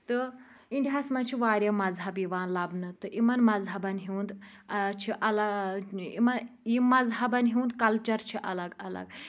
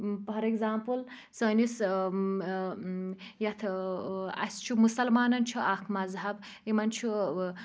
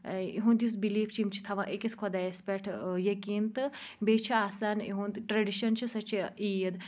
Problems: constant background noise